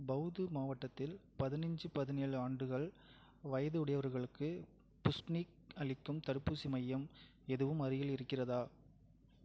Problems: low volume